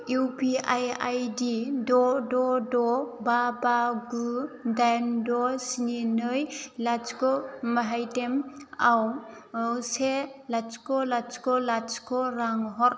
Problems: low volume